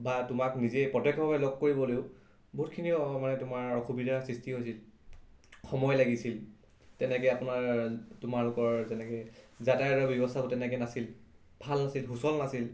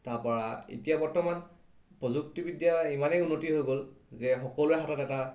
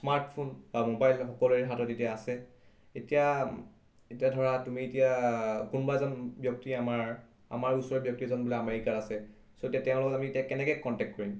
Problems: none marked